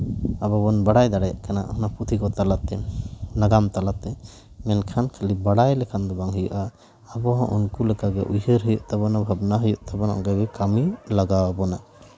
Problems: background sounds at intervals